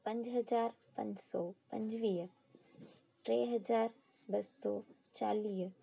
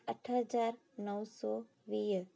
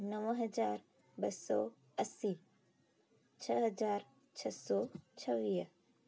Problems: constant background noise, echo